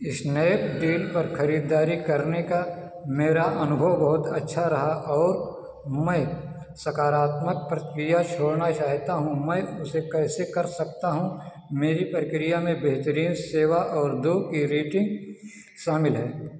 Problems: none marked